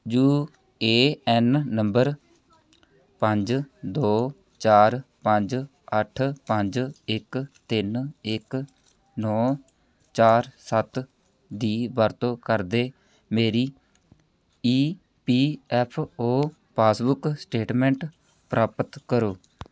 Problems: none marked